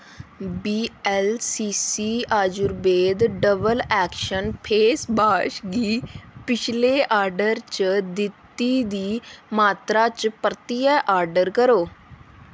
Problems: constant background noise